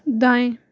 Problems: none marked